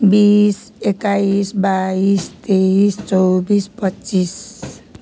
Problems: background sounds at intervals